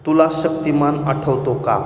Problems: echo